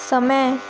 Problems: constant background noise